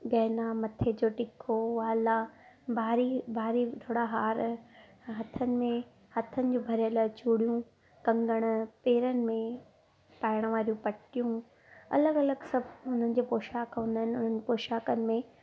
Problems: none marked